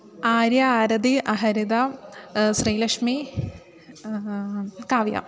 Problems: constant background noise